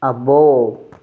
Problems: none marked